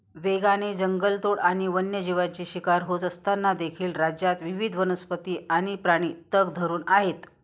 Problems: constant background noise